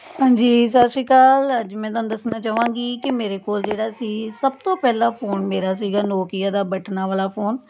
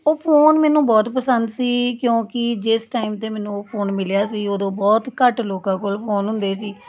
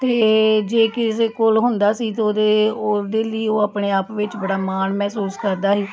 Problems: none marked